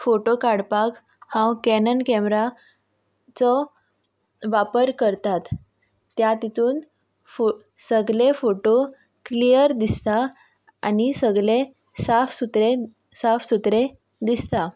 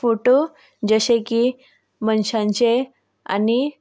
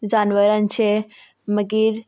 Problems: constant background noise